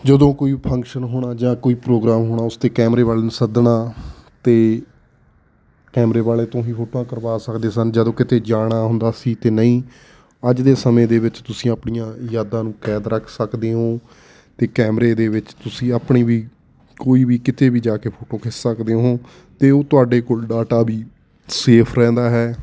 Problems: none marked